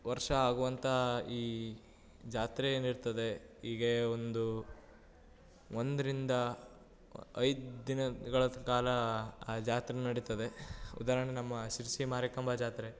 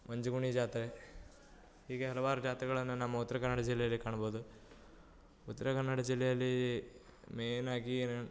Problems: none marked